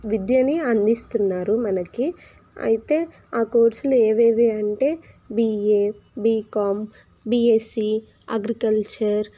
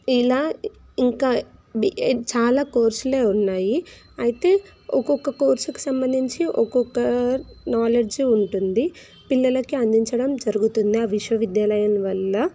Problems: constant background noise